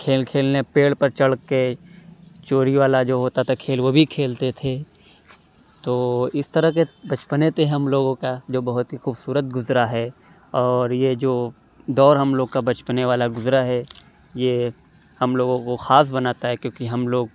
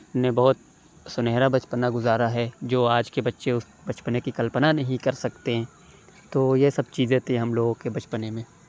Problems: background sounds at intervals